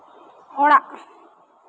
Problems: constant background noise